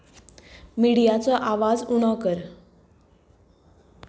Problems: none marked